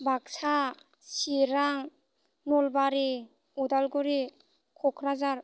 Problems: constant background noise